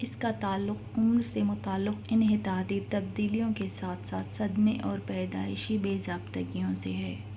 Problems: constant background noise